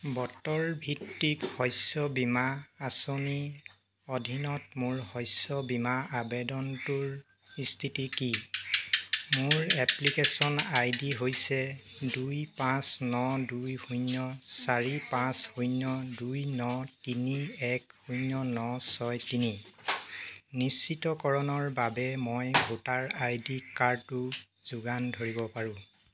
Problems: none marked